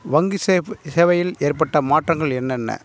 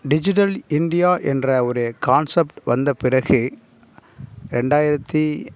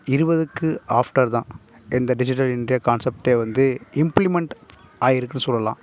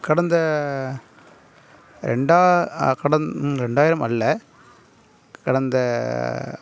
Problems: none marked